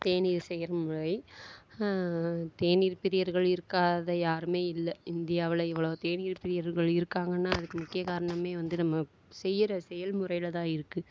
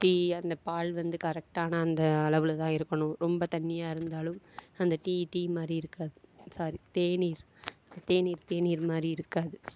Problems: none marked